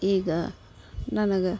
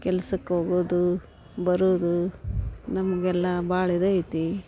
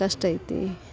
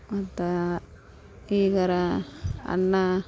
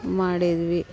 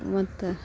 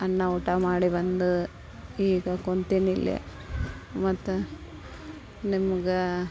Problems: none marked